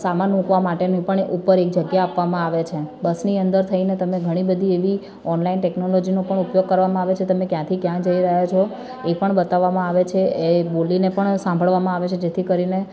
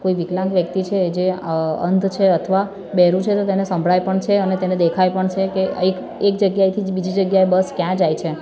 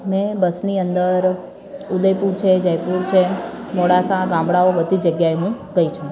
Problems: constant background noise, continuous background conversations